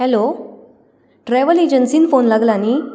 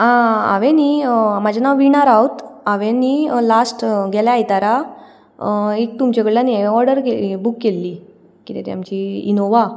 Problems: none marked